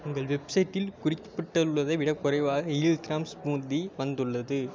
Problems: constant background noise